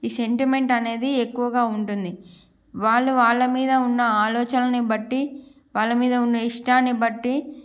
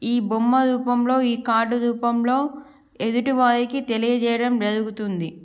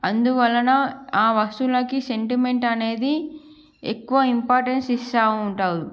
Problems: background sounds at intervals